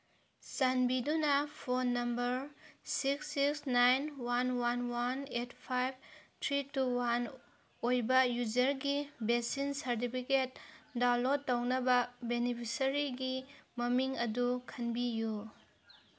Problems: none marked